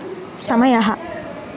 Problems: constant background noise